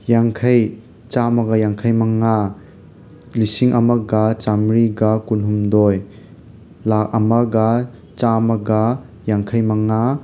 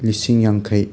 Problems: constant background noise